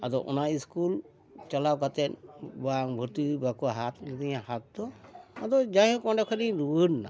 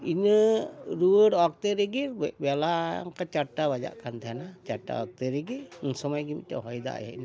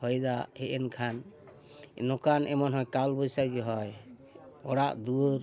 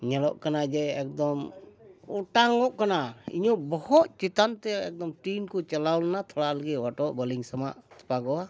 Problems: background sounds at intervals, background conversations at intervals